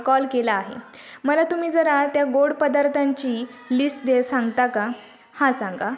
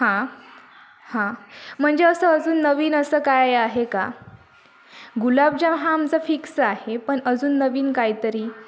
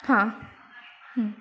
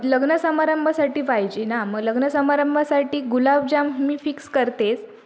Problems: constant background noise, continuous background conversations